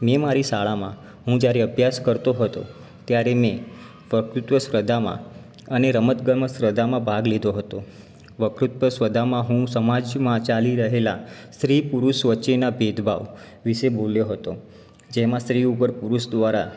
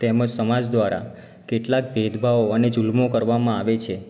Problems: background sounds at intervals